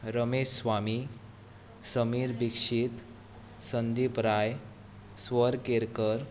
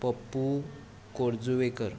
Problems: background conversations at intervals